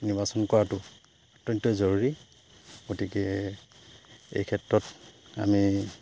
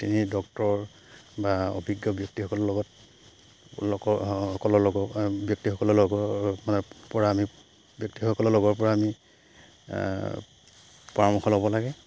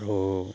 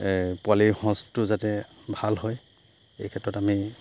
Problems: none marked